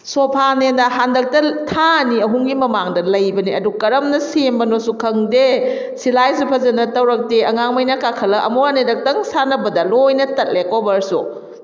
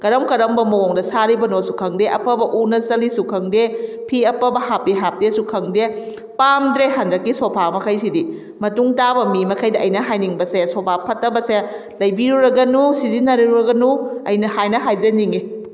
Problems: none marked